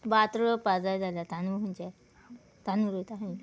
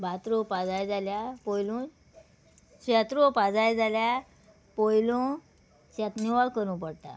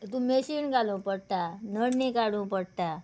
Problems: none marked